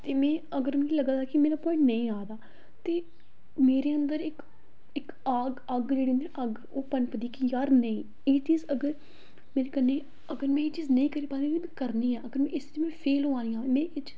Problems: echo